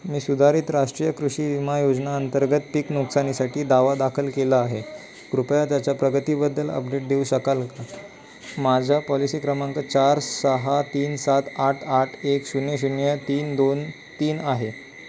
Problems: none marked